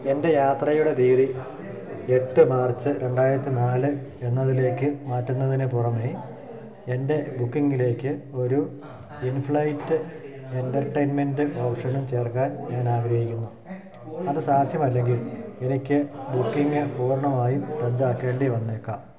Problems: constant background noise